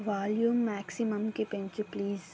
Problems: constant background noise